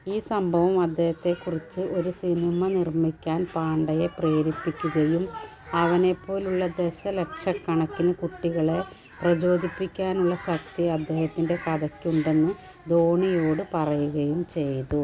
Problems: background sounds at intervals, background conversations at intervals